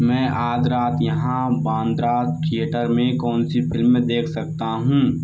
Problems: none marked